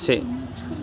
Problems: constant background noise